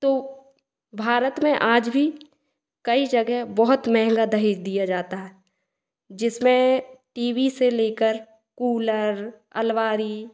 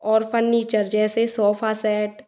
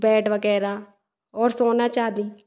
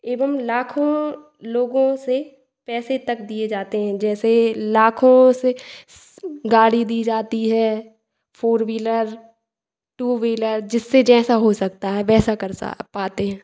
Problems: echo